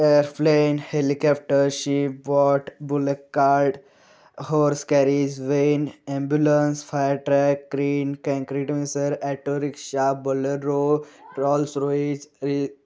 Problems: constant background noise